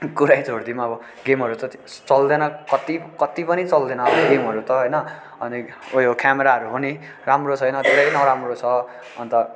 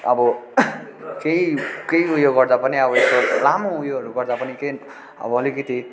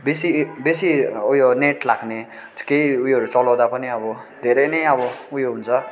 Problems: constant background noise, background conversations at intervals